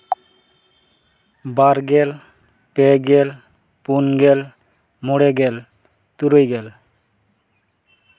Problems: none marked